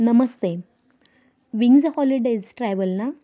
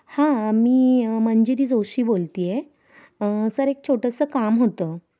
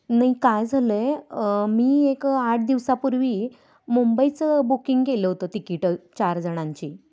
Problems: constant background noise